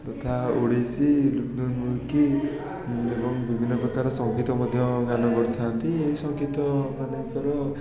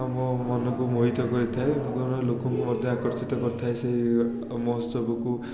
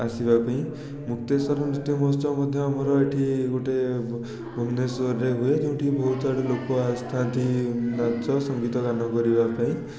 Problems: constant background noise, continuous background conversations